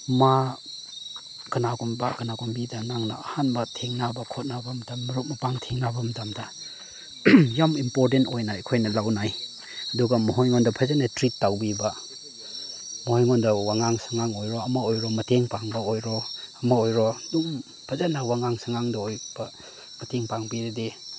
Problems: none marked